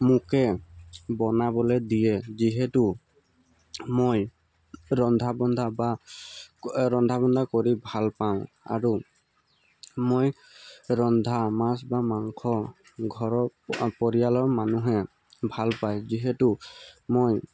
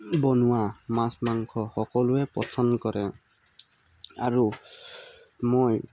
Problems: constant background noise